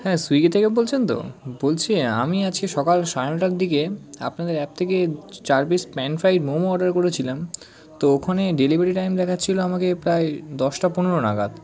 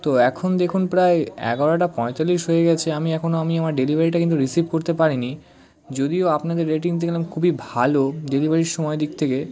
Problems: constant background noise, background conversations at intervals